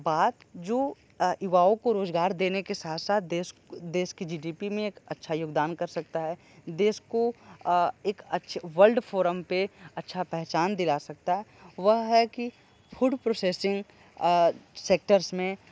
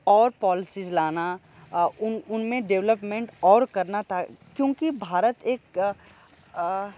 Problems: background sounds at intervals